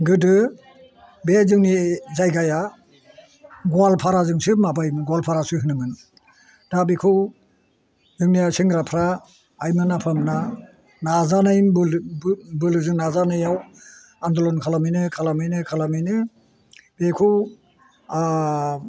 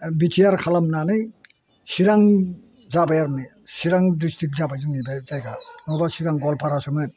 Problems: constant background noise